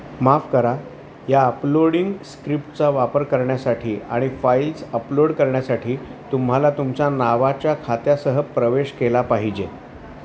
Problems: none marked